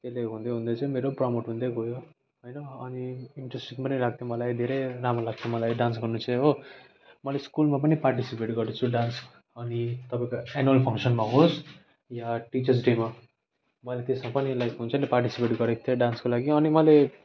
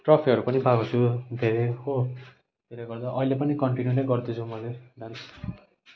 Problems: none marked